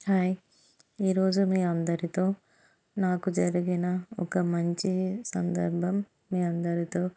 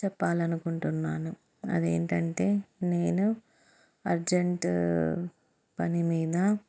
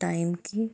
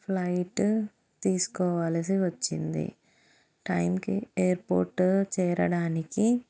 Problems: none marked